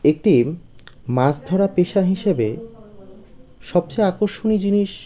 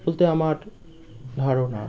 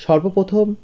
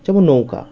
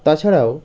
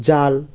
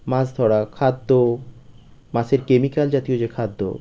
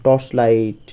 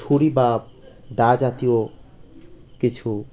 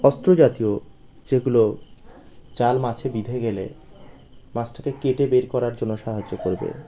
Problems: constant background noise